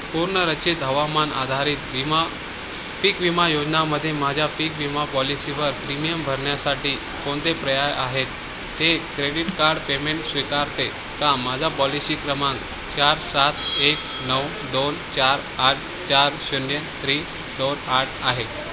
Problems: constant background noise, background conversations at intervals